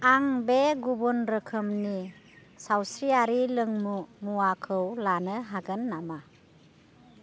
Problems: none marked